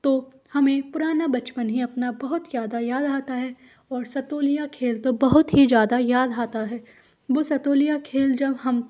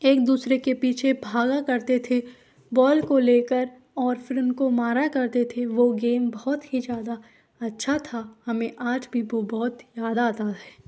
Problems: none marked